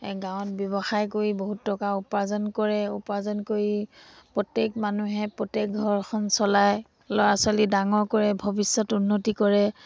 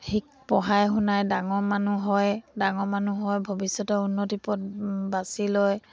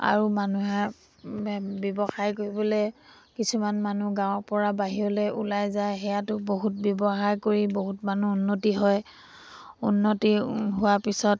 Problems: background sounds at intervals